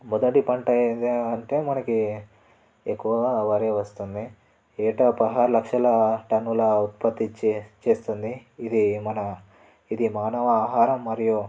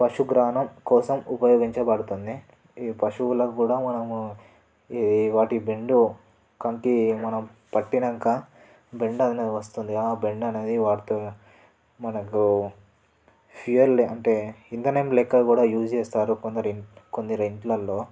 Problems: background sounds at intervals